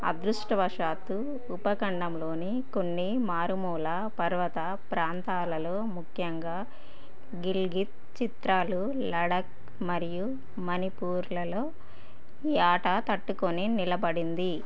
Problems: none marked